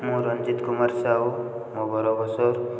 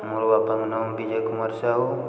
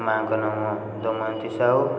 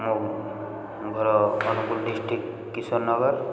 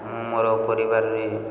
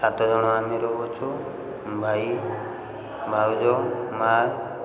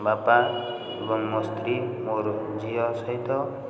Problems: constant background noise